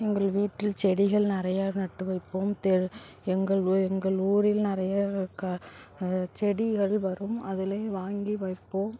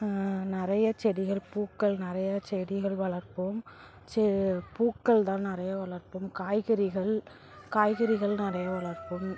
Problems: background sounds at intervals, background conversations at intervals